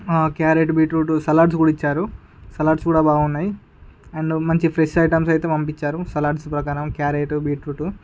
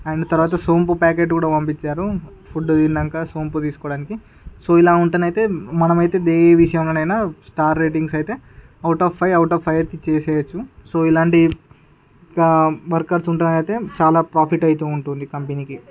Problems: background sounds at intervals, background conversations at intervals